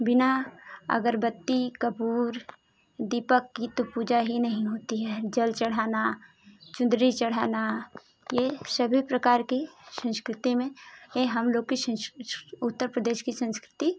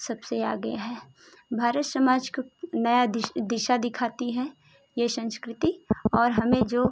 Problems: constant background noise